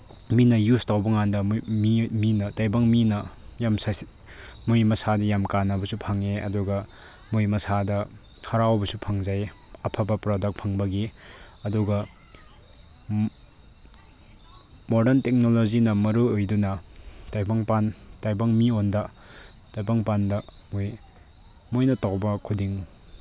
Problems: background sounds at intervals